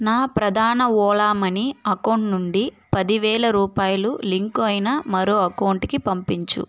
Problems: constant background noise